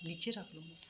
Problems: constant background noise